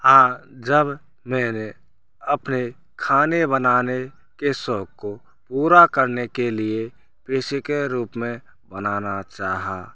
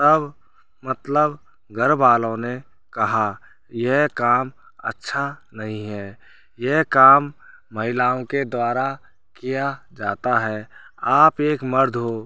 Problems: constant background noise